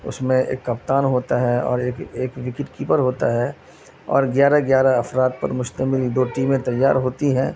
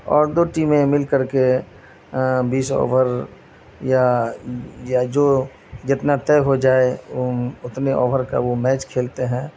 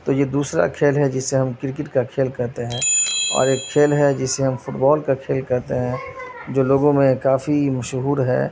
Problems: constant background noise